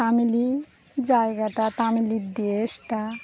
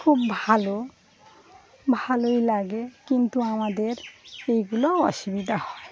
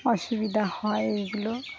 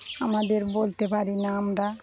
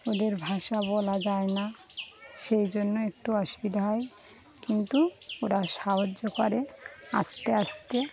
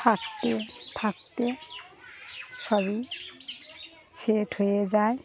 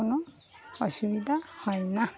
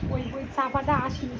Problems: constant background noise, continuous background conversations